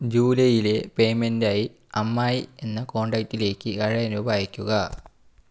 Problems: none marked